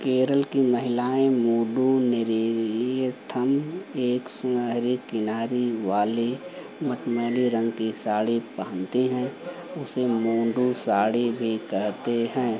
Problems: none marked